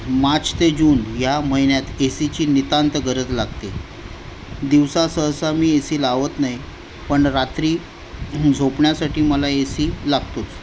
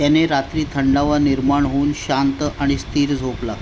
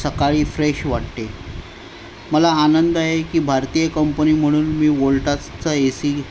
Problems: none marked